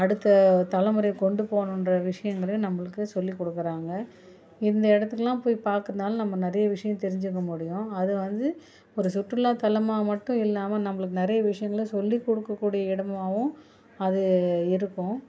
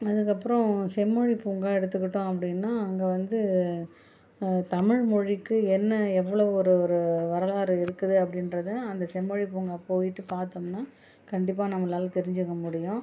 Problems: none marked